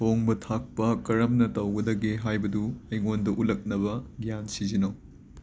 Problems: constant background noise